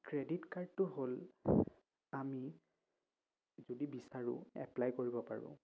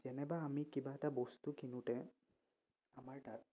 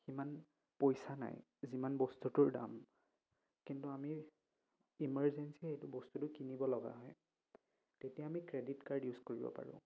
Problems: none marked